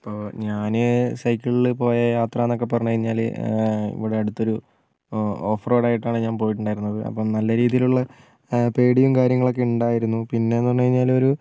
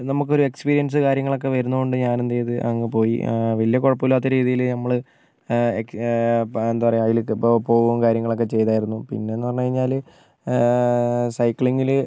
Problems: none marked